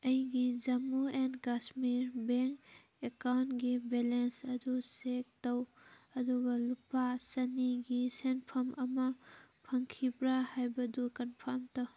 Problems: background sounds at intervals